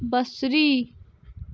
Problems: background sounds at intervals